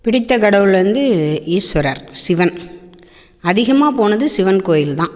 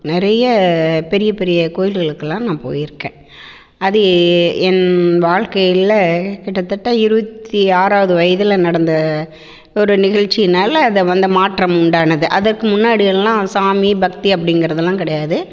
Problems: none marked